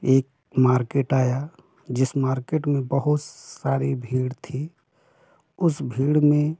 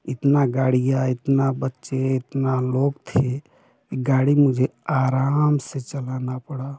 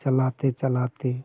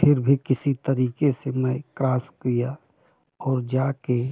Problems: constant background noise